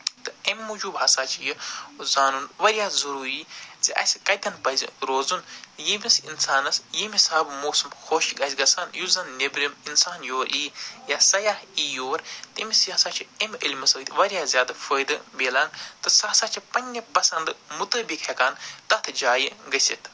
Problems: none marked